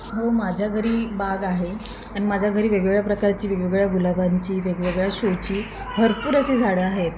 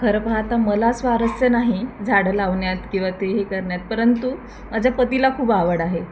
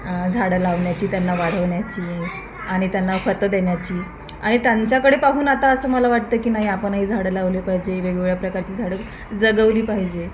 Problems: constant background noise, background conversations at intervals